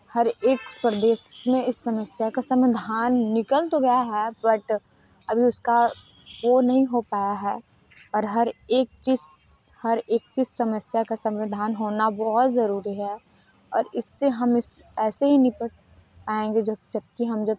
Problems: constant background noise